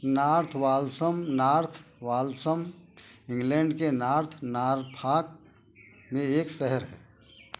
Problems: constant background noise